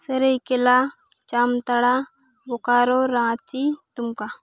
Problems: none marked